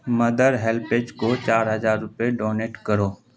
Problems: background sounds at intervals